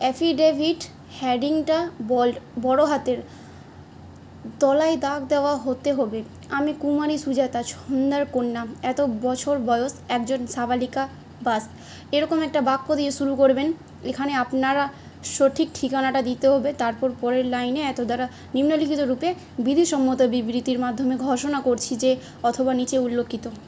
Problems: none marked